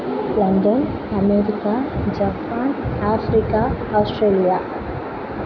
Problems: constant background noise